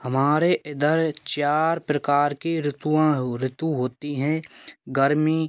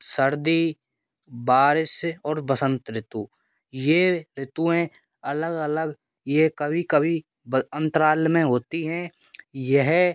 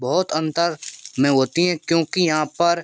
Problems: none marked